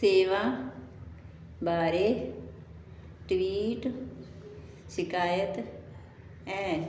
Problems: none marked